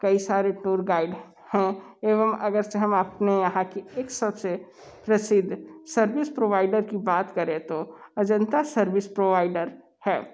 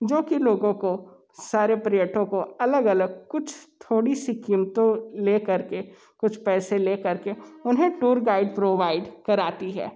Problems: constant background noise